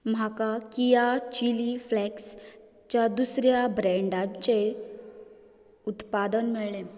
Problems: none marked